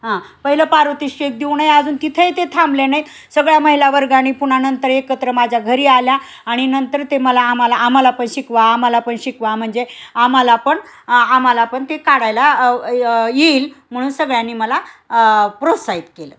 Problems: none marked